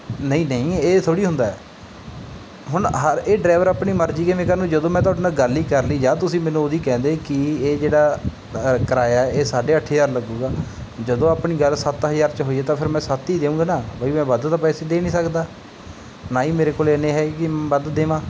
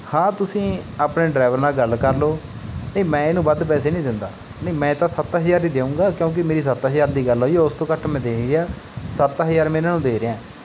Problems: none marked